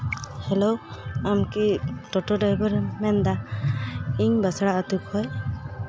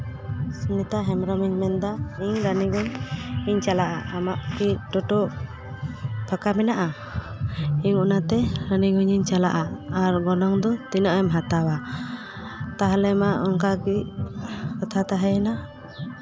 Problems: none marked